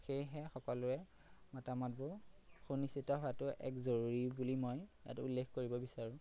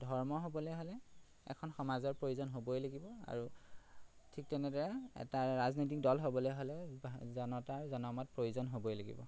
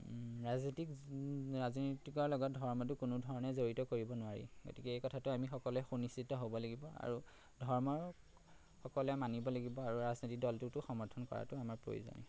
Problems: constant background noise